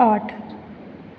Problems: none marked